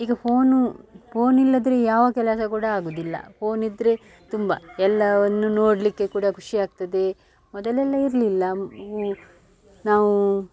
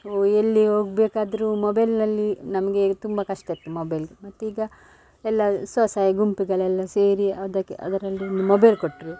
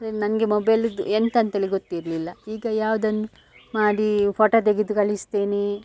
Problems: background sounds at intervals